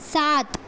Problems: none marked